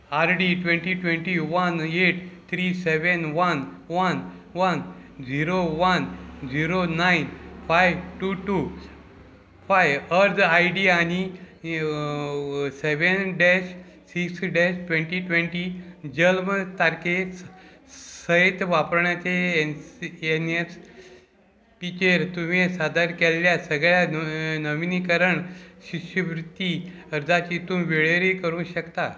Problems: none marked